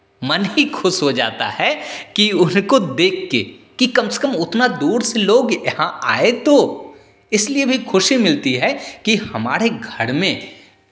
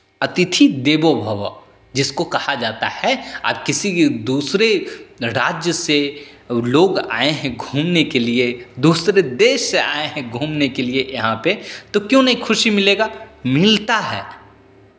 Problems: constant background noise, echo